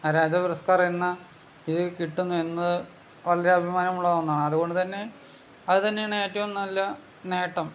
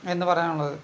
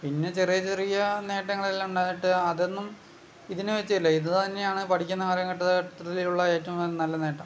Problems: background sounds at intervals